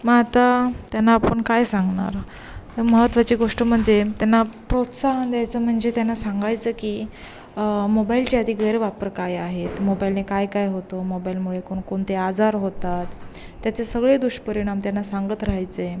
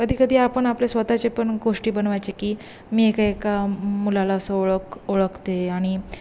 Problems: constant background noise